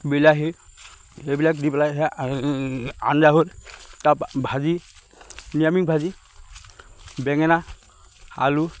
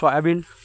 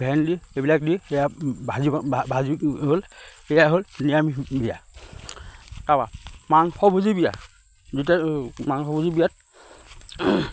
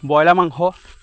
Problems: background sounds at intervals